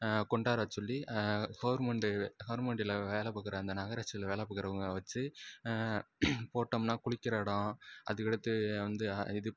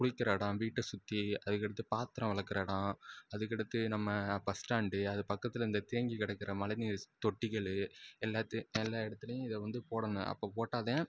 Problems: none marked